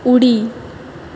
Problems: constant background noise